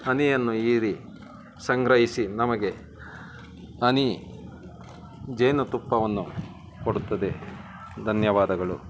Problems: constant background noise